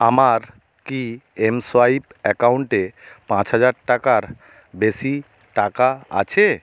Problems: none marked